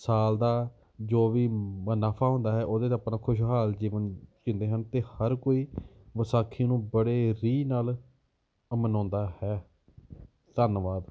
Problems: none marked